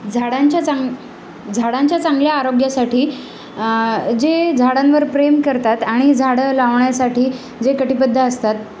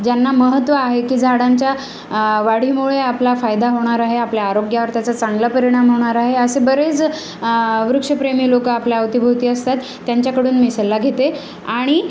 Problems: none marked